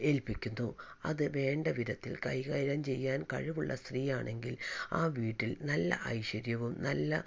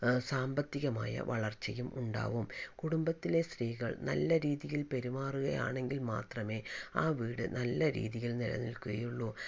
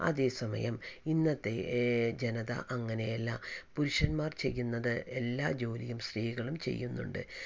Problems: none marked